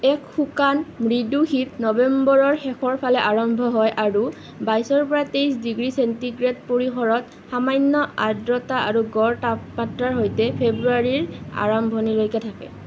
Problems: constant background noise